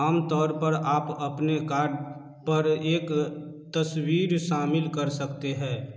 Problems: echo